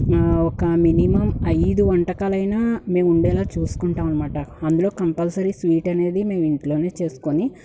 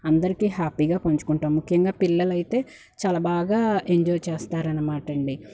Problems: background sounds at intervals